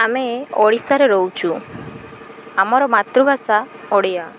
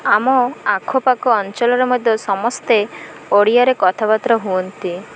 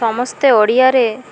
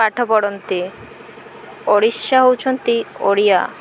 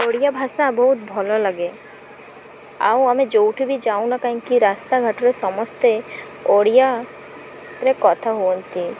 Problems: none marked